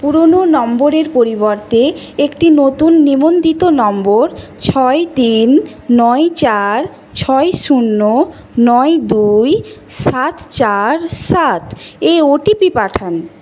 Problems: none marked